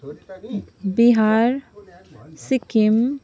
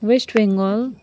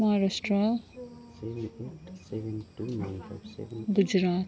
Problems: continuous background conversations